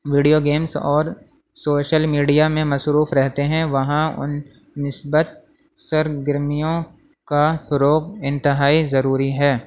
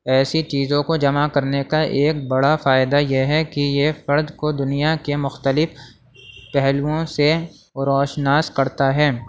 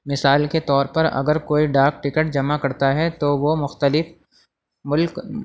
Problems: constant background noise, low volume